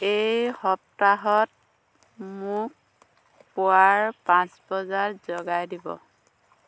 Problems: background sounds at intervals